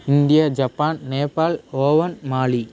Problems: constant background noise